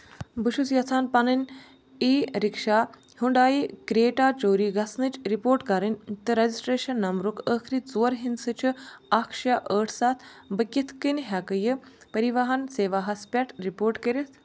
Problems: none marked